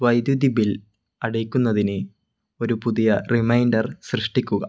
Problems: none marked